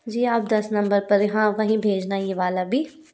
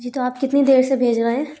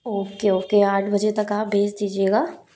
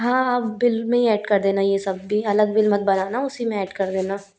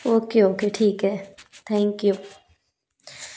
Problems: none marked